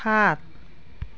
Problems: background sounds at intervals, background conversations at intervals